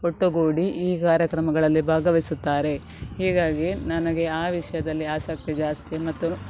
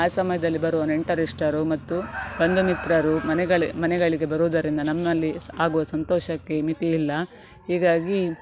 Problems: background sounds at intervals